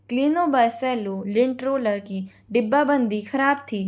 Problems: none marked